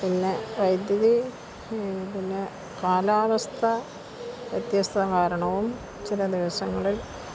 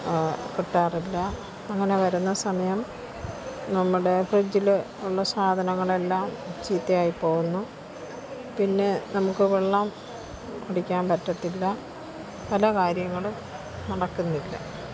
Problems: constant background noise, low volume